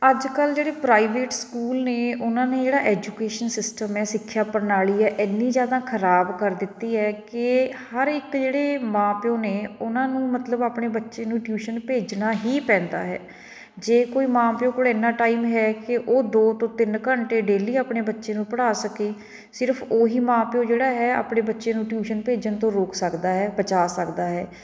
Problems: none marked